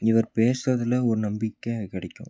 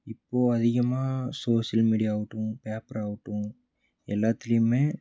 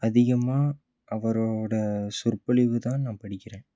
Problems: low volume